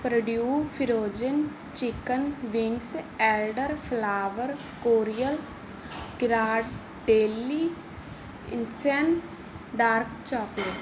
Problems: background sounds at intervals